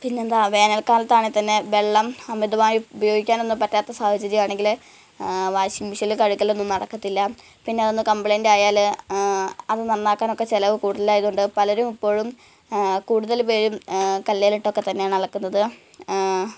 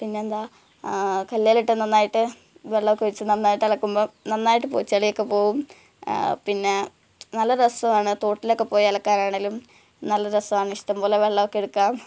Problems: background sounds at intervals, low volume